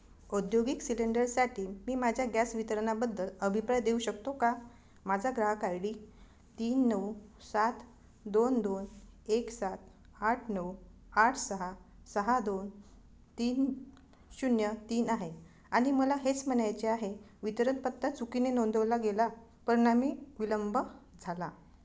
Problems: none marked